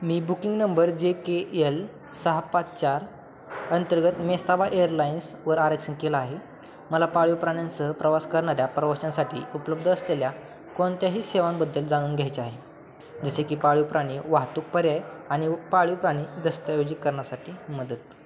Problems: none marked